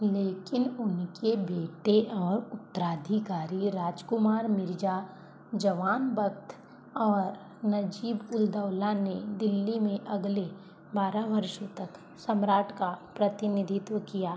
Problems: none marked